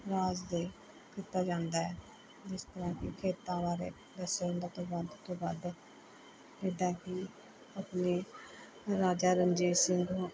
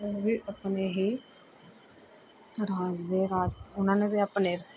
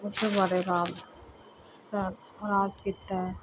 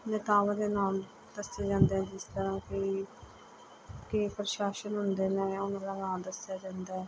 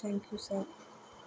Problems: constant background noise